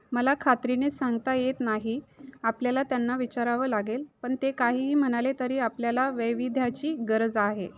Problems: constant background noise, continuous background conversations